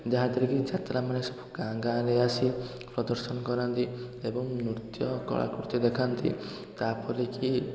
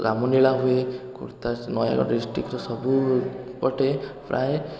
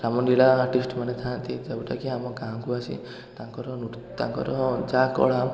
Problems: constant background noise, continuous background conversations